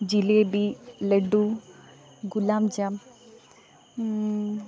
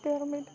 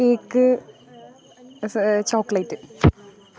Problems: background conversations at intervals